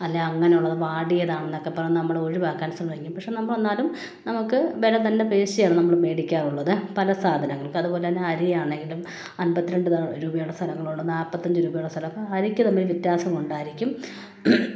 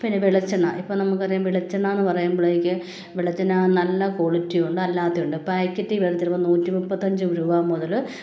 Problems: none marked